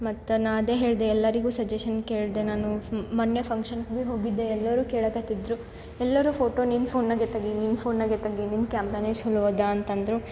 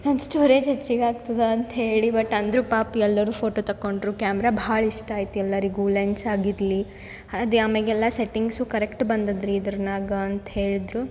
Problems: background sounds at intervals